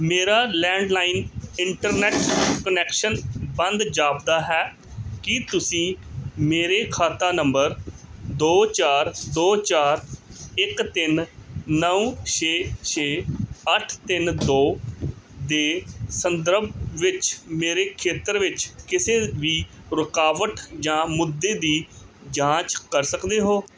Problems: background sounds at intervals